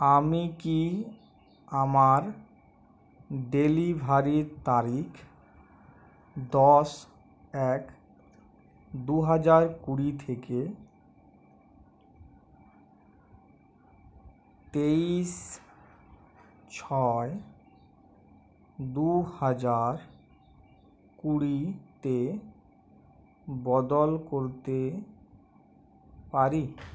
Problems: none marked